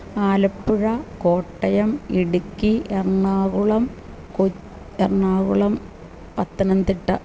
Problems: none marked